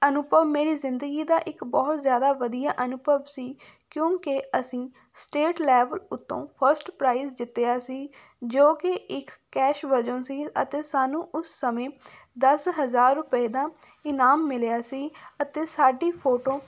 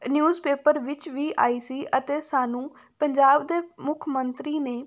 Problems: none marked